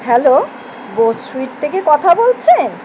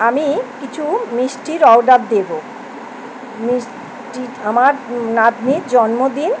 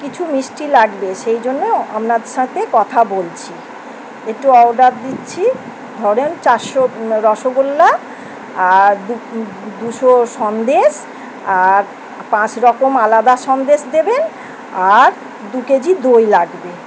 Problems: constant background noise